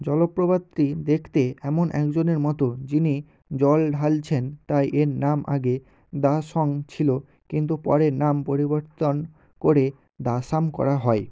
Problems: none marked